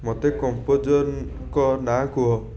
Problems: background conversations at intervals